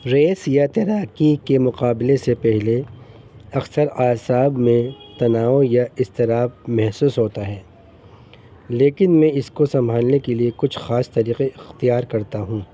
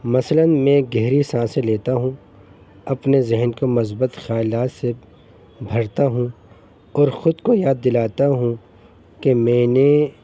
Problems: constant background noise